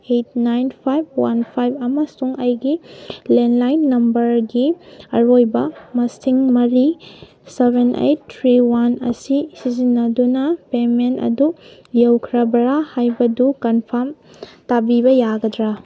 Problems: none marked